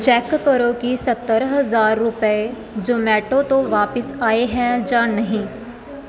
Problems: background sounds at intervals